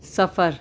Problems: background sounds at intervals